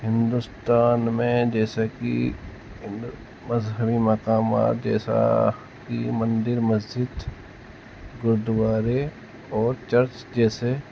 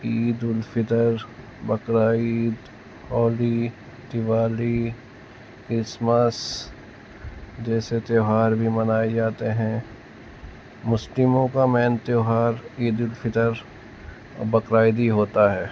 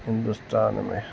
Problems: constant background noise